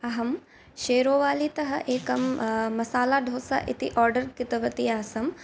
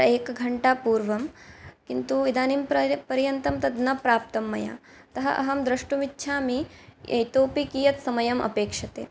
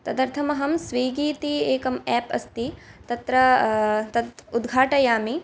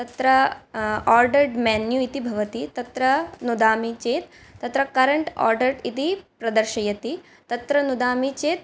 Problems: none marked